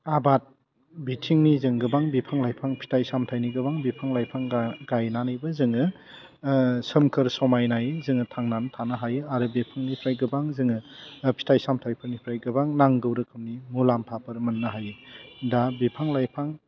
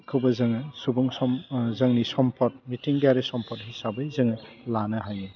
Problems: low volume